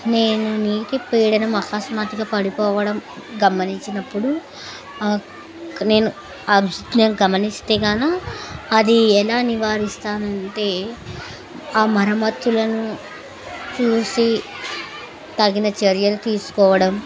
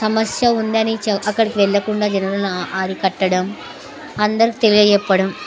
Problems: continuous background conversations